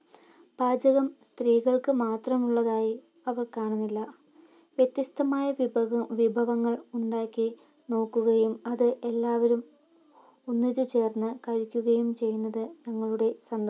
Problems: none marked